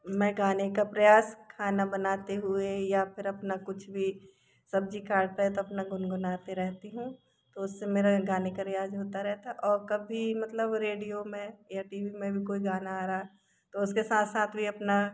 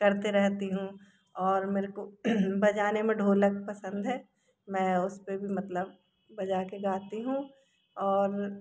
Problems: background sounds at intervals